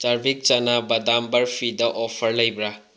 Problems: low volume